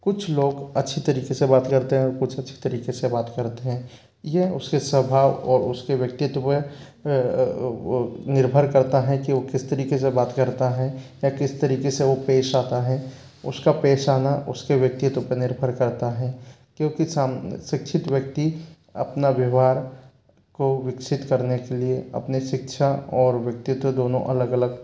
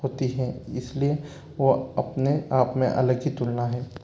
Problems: none marked